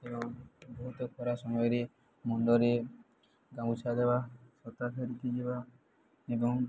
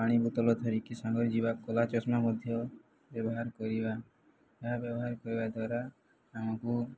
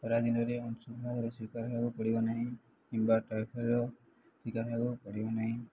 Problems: none marked